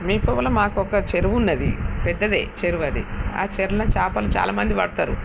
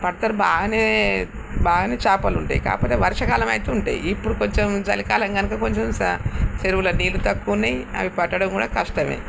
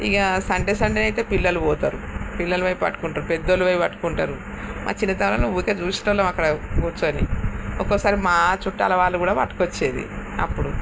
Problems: constant background noise